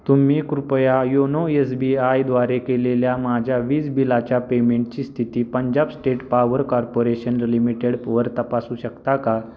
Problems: constant background noise, background conversations at intervals